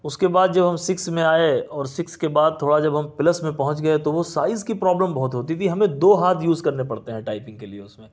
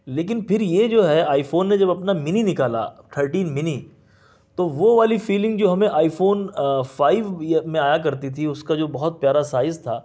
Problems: none marked